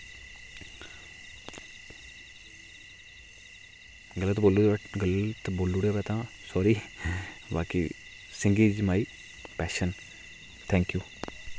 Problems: constant background noise